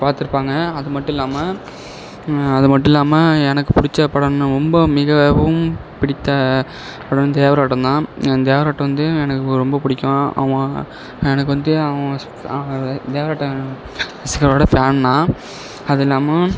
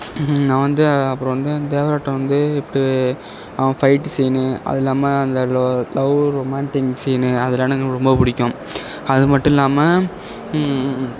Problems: background sounds at intervals